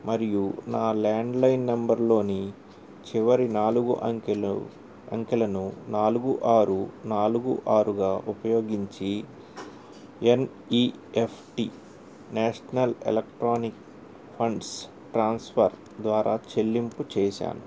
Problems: none marked